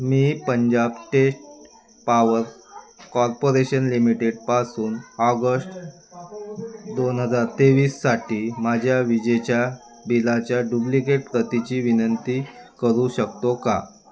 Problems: none marked